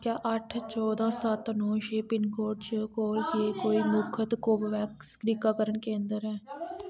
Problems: background sounds at intervals